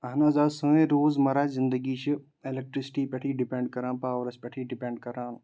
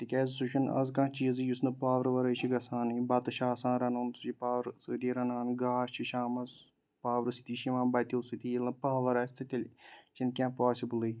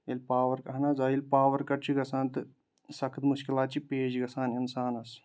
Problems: background sounds at intervals